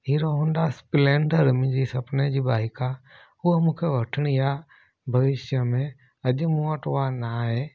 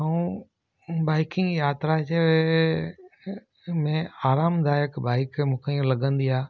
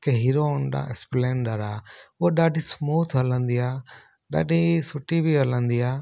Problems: none marked